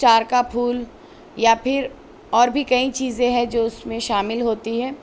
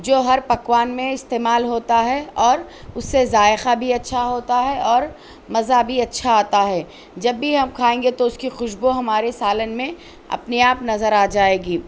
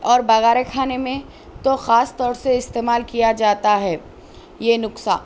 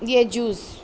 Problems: none marked